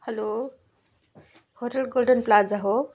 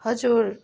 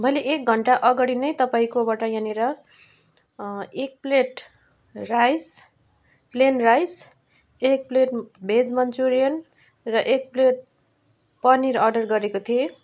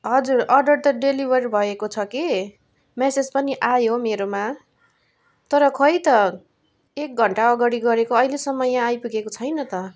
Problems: background sounds at intervals